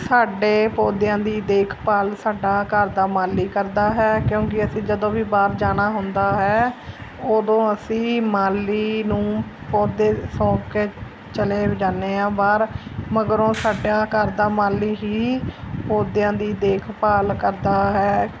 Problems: constant background noise